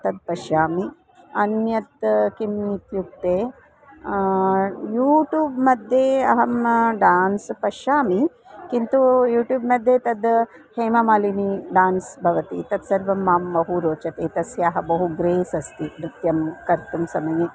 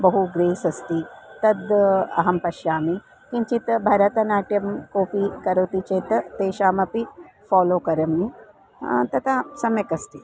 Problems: constant background noise